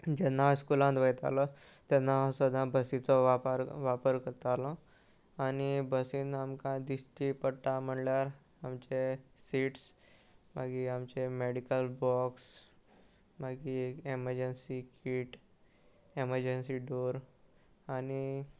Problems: none marked